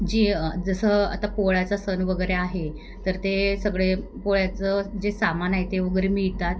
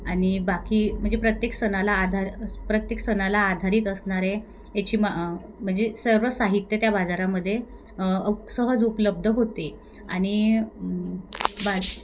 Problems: none marked